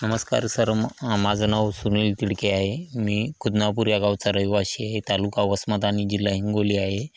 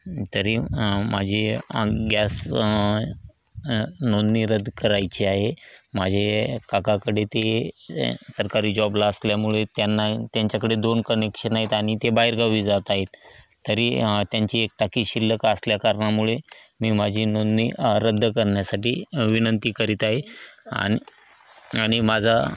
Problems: constant background noise